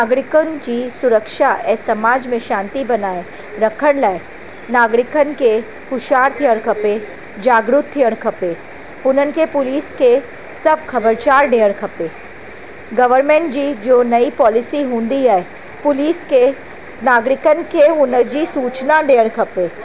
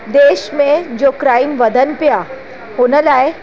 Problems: constant background noise